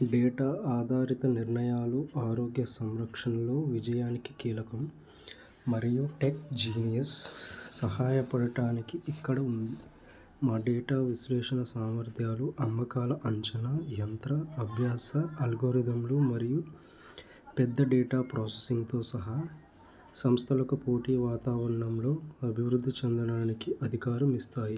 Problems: constant background noise